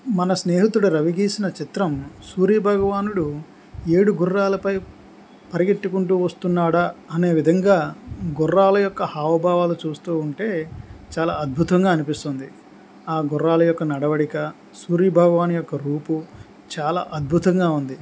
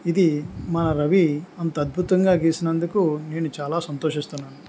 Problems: none marked